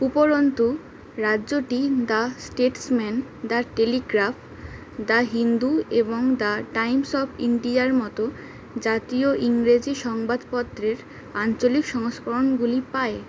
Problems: constant background noise